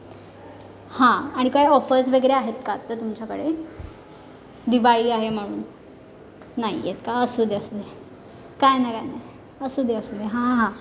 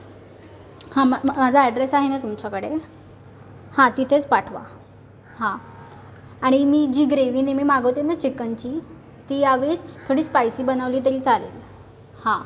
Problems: background sounds at intervals